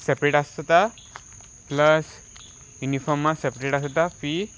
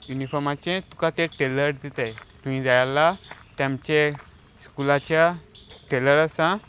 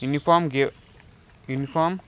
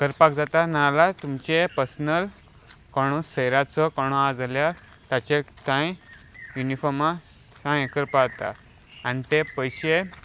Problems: none marked